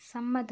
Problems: low volume